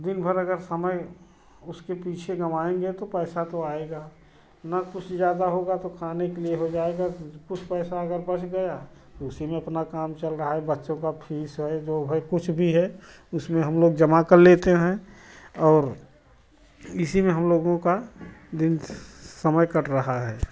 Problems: none marked